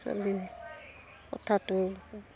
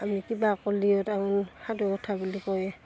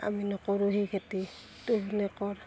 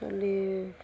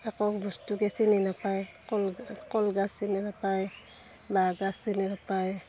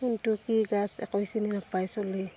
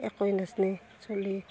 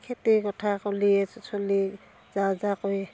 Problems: constant background noise, continuous background conversations